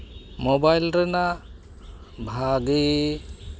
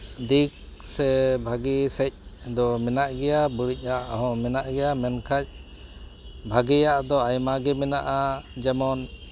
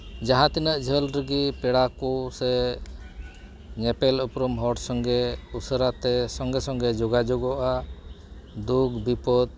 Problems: background sounds at intervals